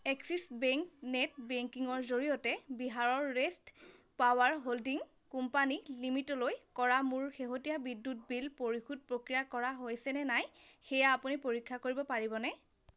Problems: constant background noise